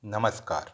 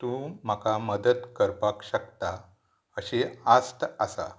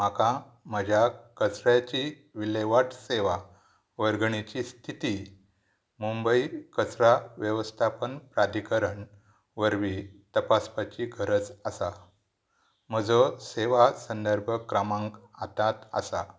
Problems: none marked